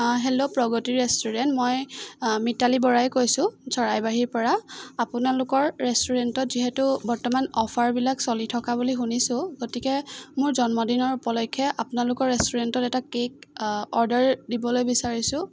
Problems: none marked